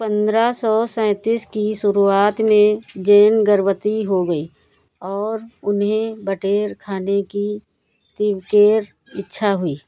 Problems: none marked